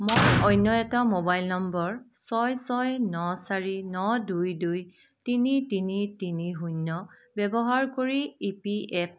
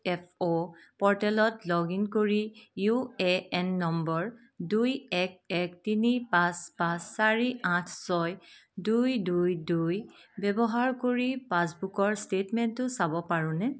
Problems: none marked